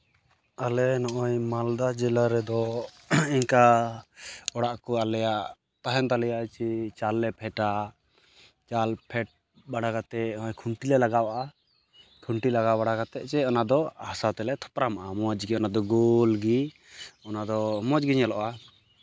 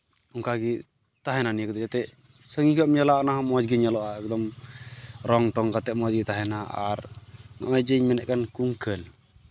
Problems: constant background noise